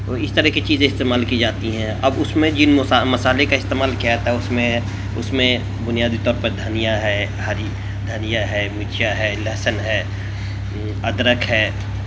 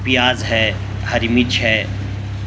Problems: constant background noise